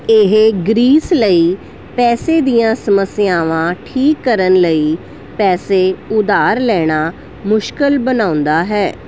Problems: none marked